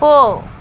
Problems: constant background noise